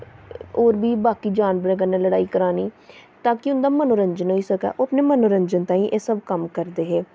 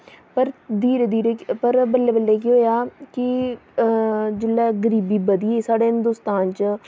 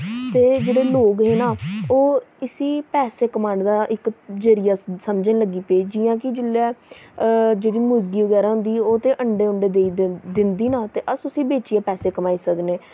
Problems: constant background noise